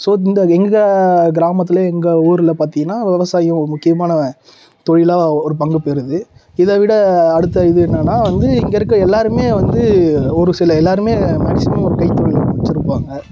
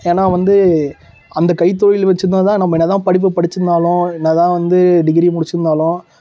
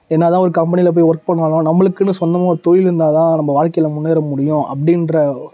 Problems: background sounds at intervals